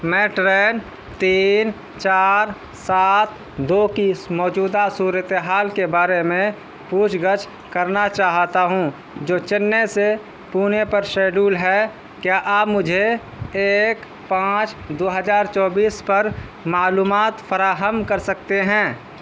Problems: constant background noise